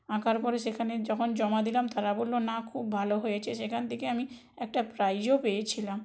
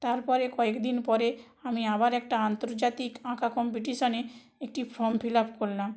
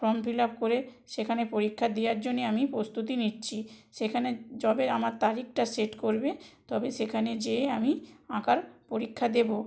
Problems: none marked